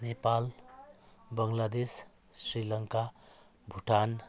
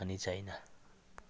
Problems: none marked